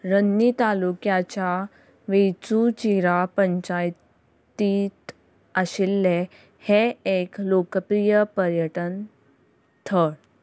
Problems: none marked